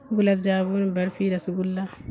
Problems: constant background noise